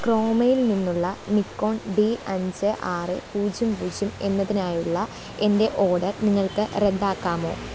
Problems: constant background noise